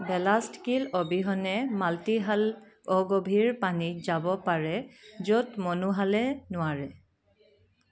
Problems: background sounds at intervals